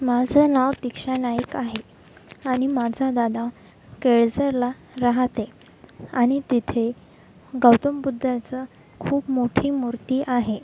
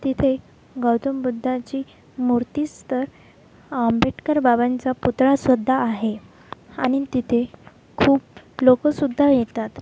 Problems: constant background noise, background conversations at intervals